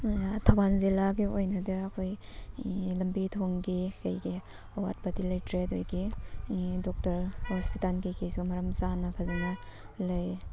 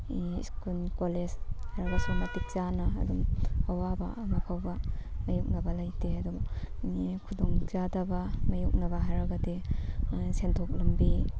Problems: constant background noise